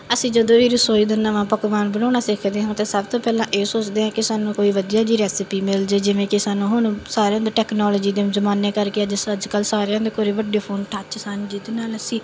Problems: background sounds at intervals